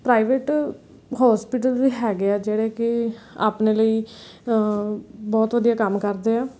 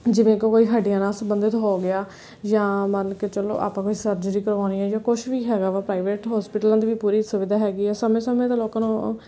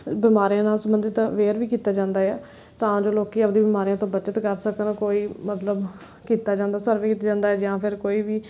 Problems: background sounds at intervals